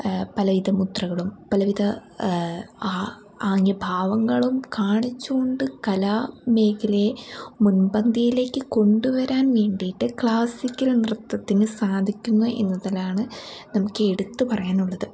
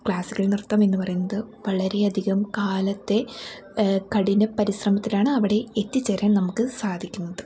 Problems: background sounds at intervals